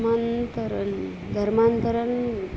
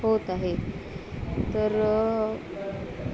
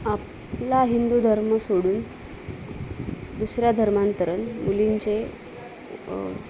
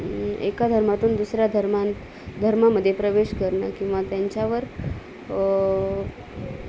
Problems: none marked